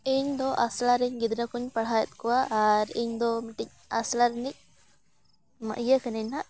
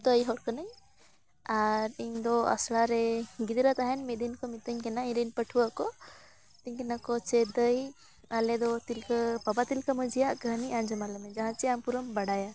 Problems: background sounds at intervals, continuous background conversations